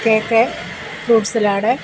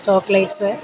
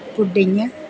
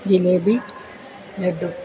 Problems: constant background noise